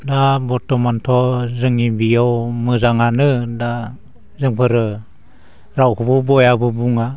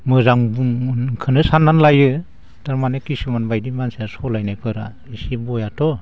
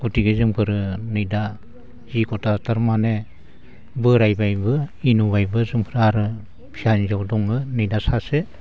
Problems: constant background noise